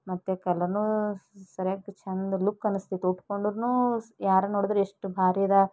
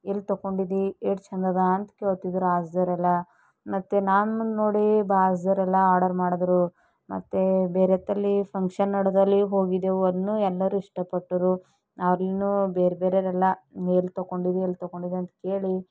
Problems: none marked